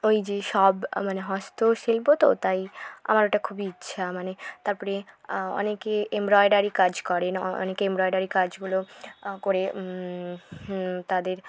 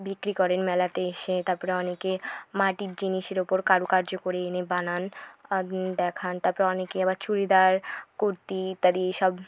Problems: background sounds at intervals